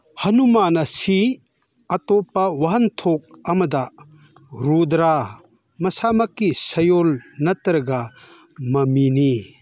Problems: none marked